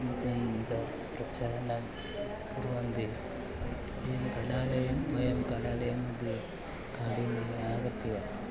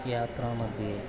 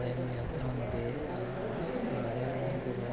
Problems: none marked